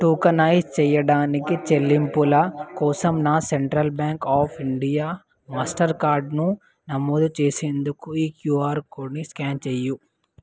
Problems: none marked